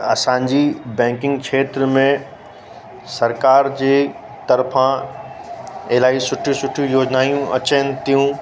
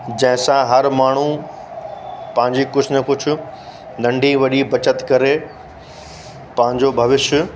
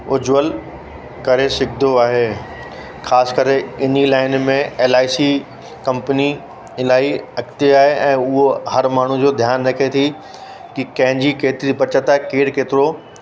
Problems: constant background noise, echo